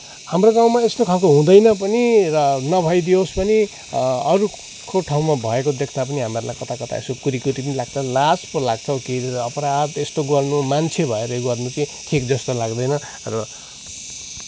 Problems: constant background noise